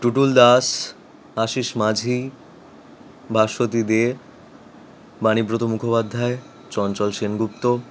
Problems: constant background noise